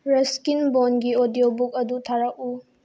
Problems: low volume